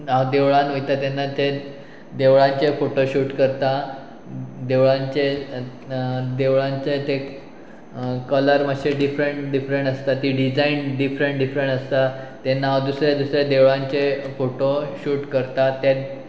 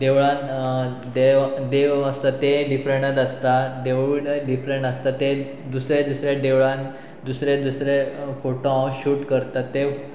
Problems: constant background noise